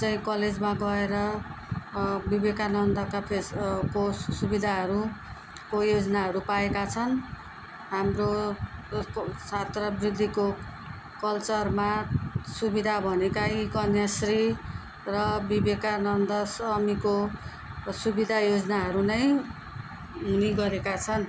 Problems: continuous background conversations